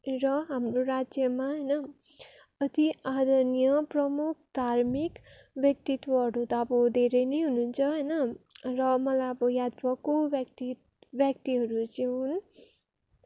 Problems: constant background noise